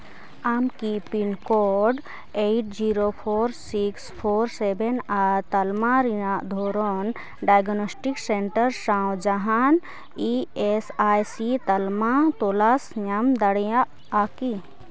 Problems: constant background noise